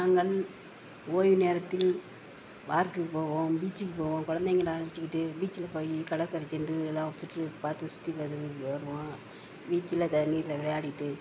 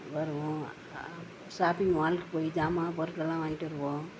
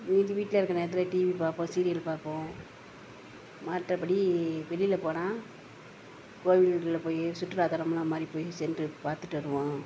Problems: constant background noise